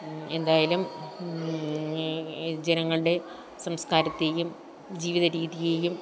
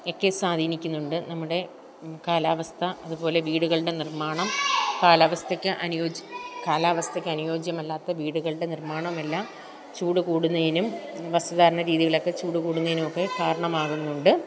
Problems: continuous background conversations